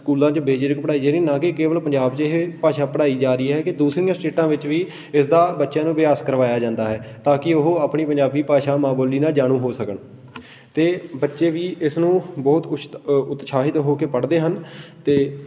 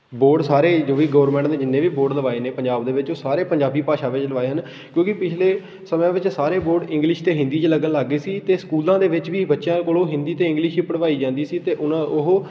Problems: constant background noise